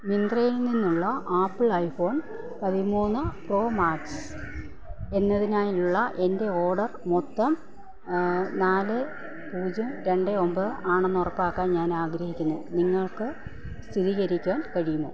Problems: constant background noise, low volume